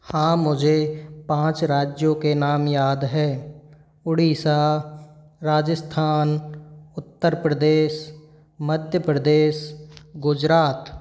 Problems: none marked